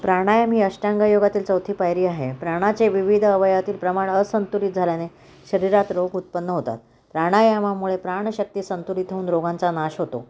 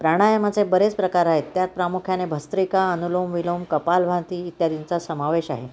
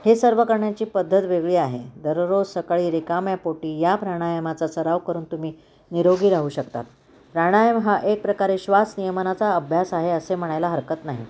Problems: constant background noise